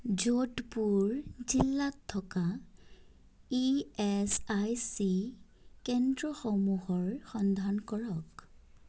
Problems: none marked